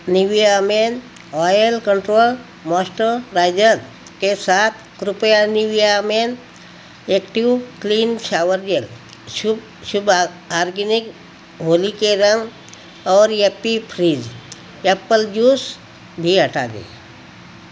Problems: constant background noise